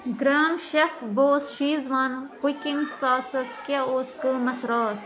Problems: constant background noise